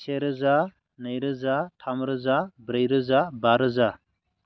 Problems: none marked